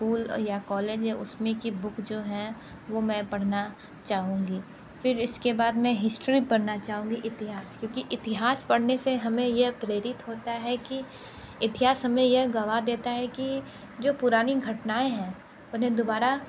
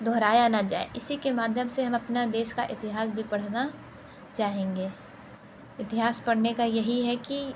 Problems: none marked